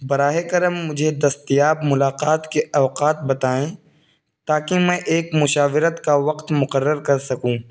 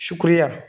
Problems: constant background noise